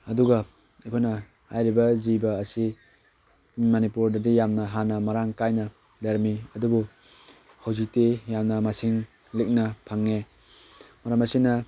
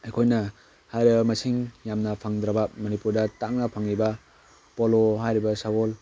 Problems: background sounds at intervals